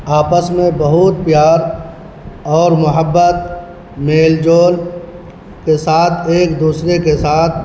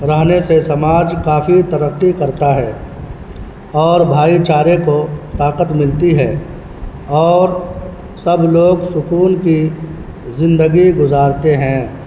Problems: constant background noise